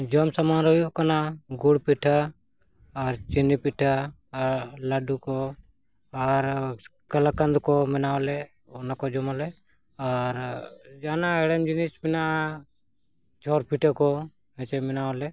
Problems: none marked